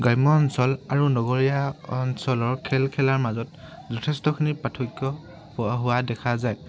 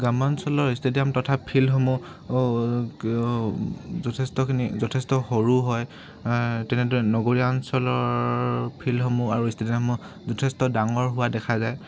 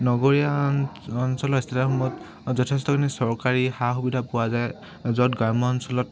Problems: background sounds at intervals